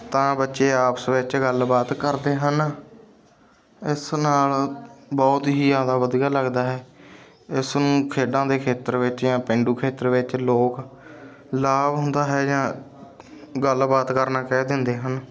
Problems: background sounds at intervals, background conversations at intervals